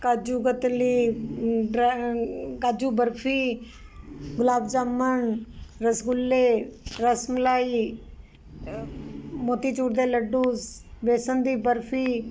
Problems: constant background noise